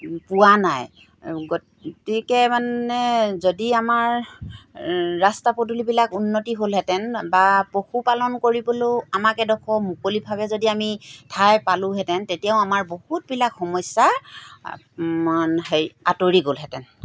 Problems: background sounds at intervals